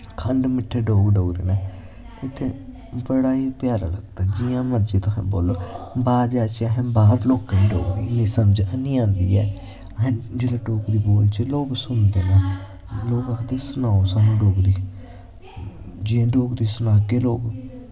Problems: constant background noise